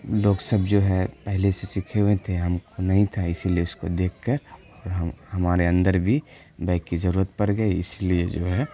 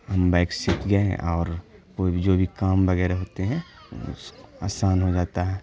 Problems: constant background noise